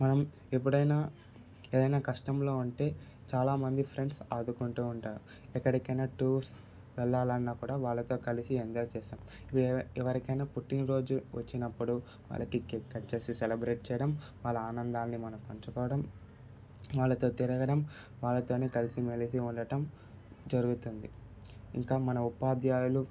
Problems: constant background noise, background conversations at intervals